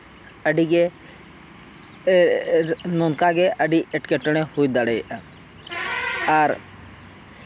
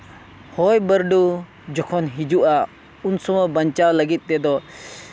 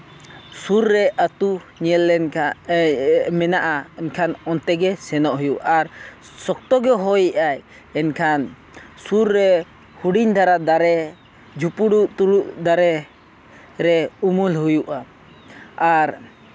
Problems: constant background noise